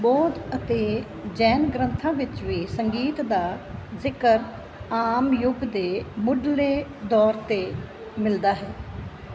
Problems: background sounds at intervals